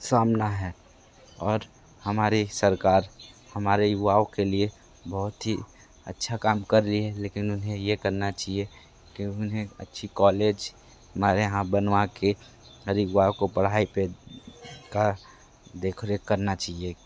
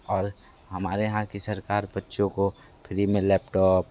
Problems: constant background noise